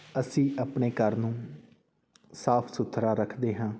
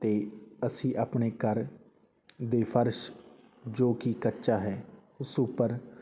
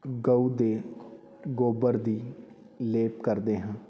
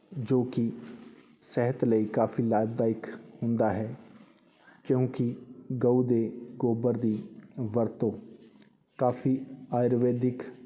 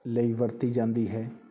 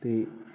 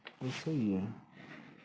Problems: constant background noise